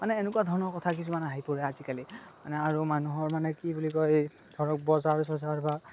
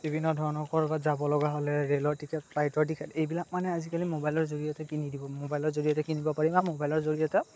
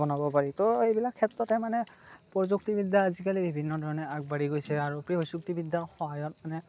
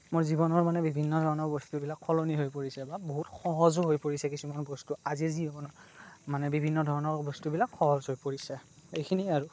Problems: constant background noise